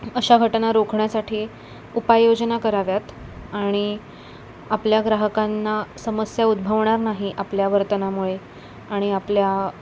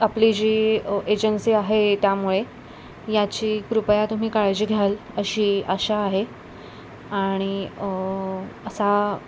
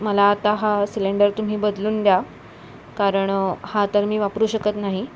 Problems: none marked